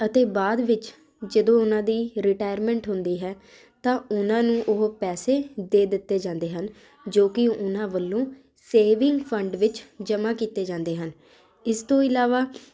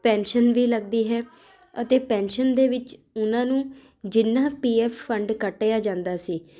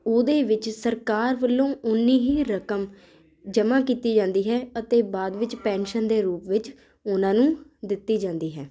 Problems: constant background noise